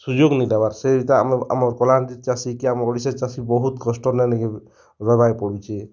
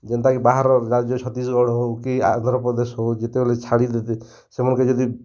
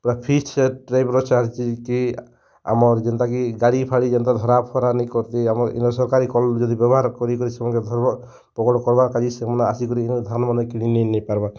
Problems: none marked